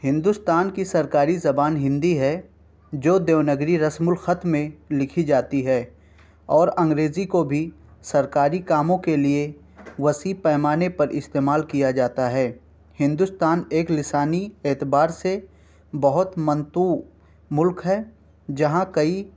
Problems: background sounds at intervals